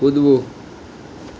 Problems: constant background noise